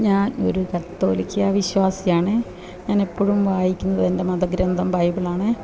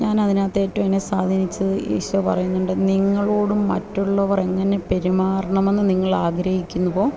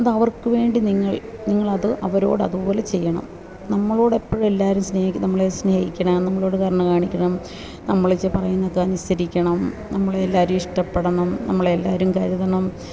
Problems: none marked